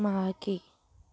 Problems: background conversations at intervals